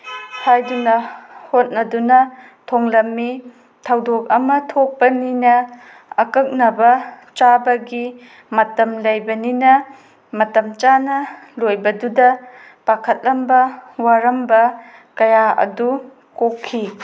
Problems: background sounds at intervals